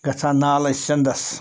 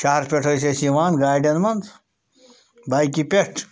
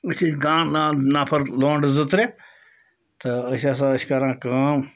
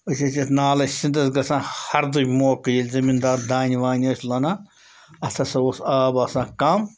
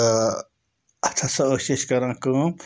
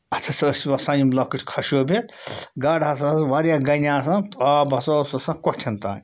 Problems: constant background noise